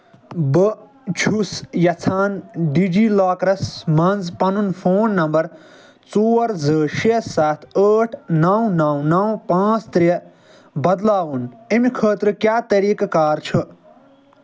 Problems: none marked